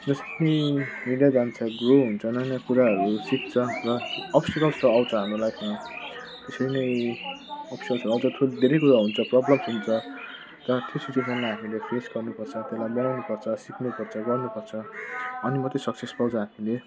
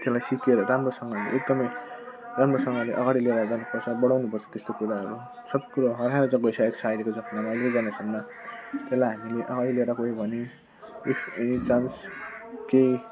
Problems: constant background noise